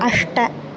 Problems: constant background noise